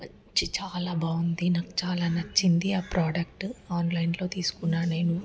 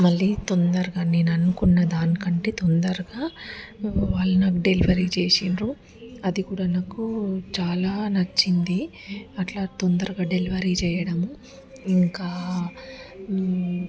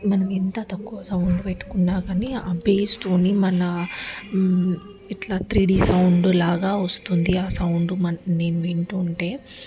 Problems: constant background noise